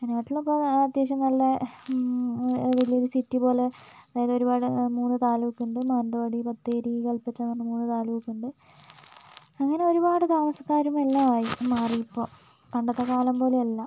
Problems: none marked